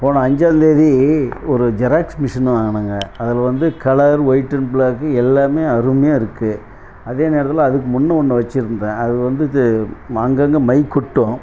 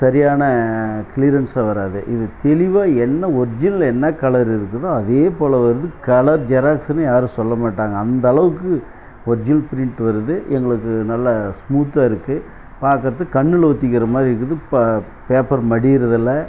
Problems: none marked